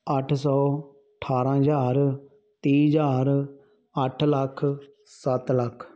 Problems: none marked